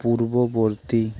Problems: constant background noise